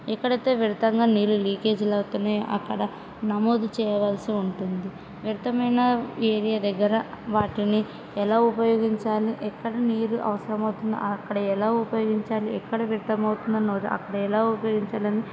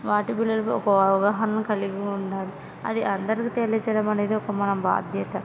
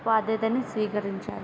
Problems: background sounds at intervals, background conversations at intervals